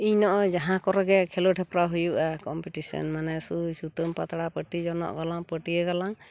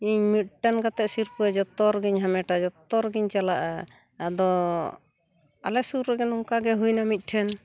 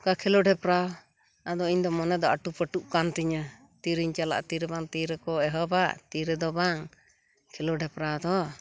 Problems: constant background noise